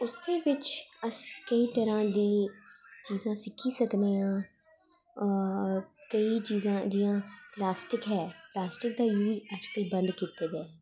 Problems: echo